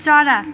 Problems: background sounds at intervals